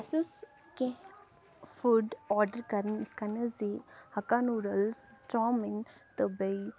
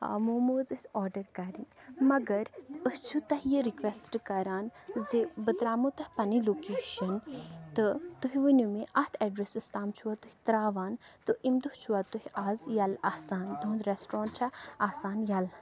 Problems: background sounds at intervals